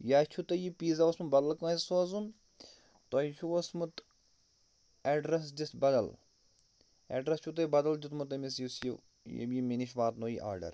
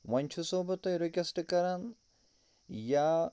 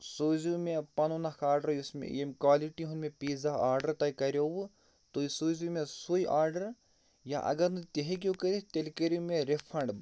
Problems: none marked